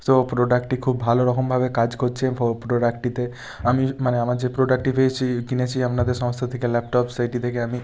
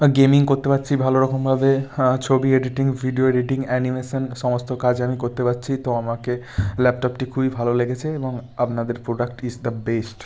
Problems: background sounds at intervals